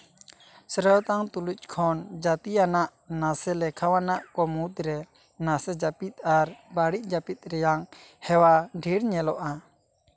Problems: background sounds at intervals